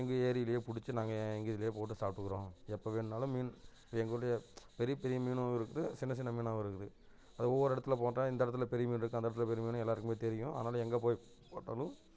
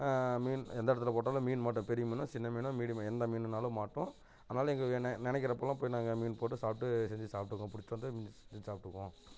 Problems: none marked